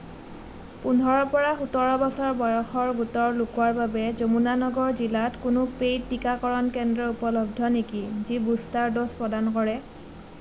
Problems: none marked